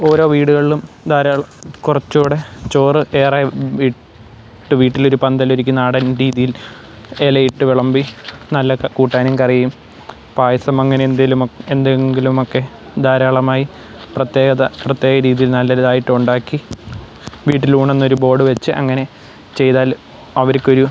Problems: background sounds at intervals